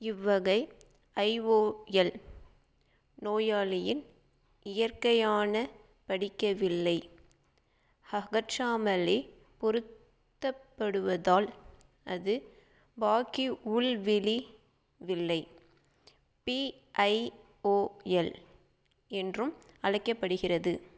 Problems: none marked